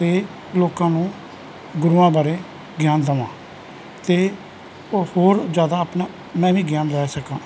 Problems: continuous background conversations